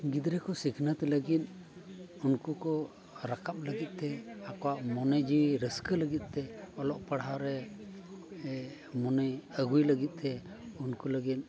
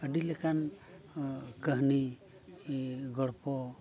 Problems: continuous background conversations